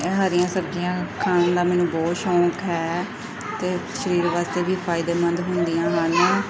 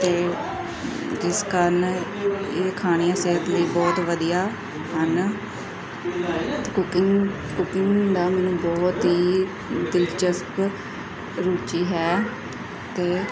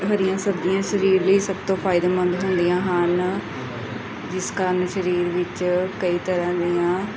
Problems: constant background noise, background conversations at intervals